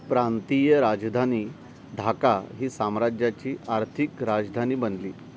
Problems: none marked